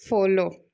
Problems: constant background noise